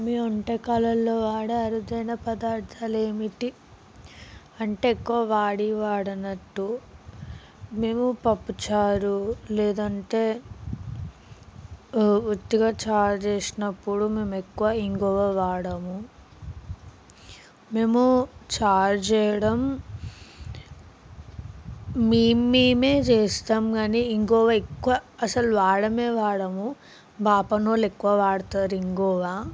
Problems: background sounds at intervals